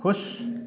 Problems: constant background noise